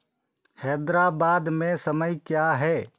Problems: background sounds at intervals